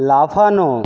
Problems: none marked